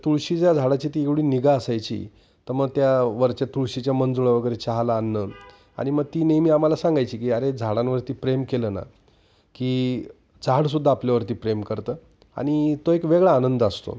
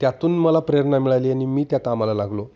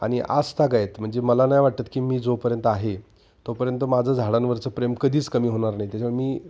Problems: constant background noise, background conversations at intervals